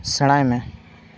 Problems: none marked